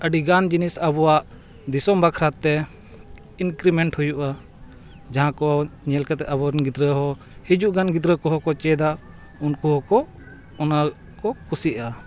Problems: background sounds at intervals